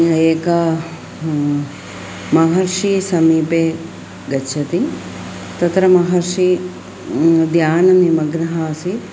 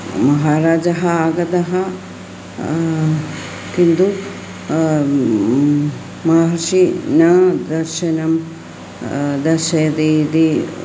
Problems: constant background noise